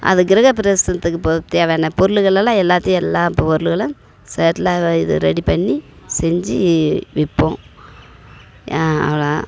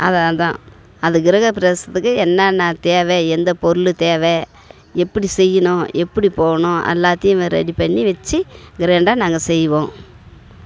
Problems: background sounds at intervals